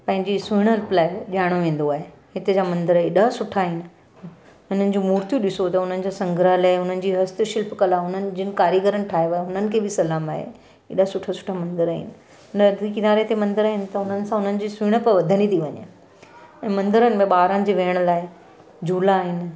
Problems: none marked